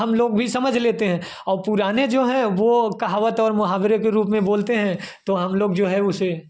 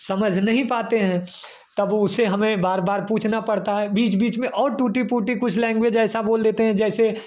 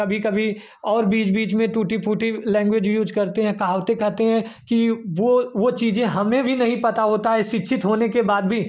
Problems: none marked